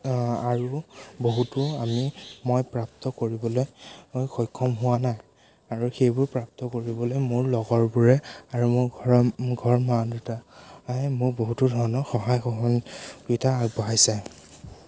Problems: constant background noise, background conversations at intervals